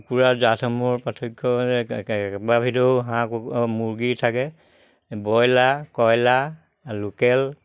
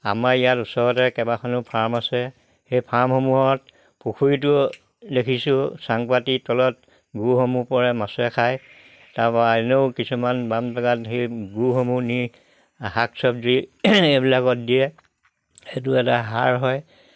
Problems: background sounds at intervals